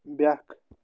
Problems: background sounds at intervals